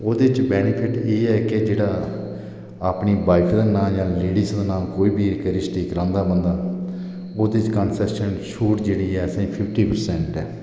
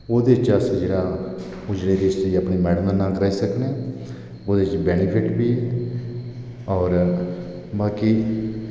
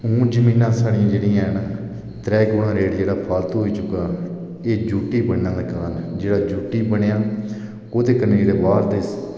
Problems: echo